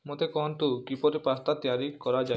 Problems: low volume